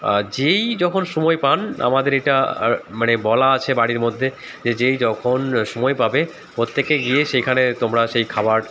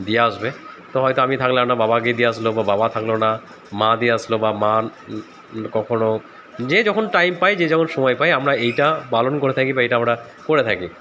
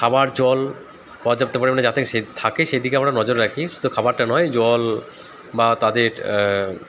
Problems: constant background noise, background conversations at intervals